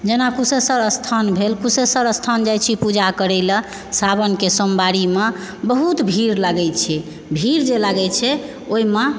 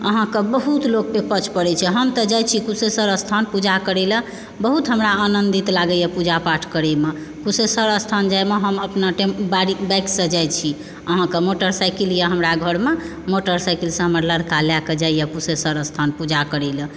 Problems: background sounds at intervals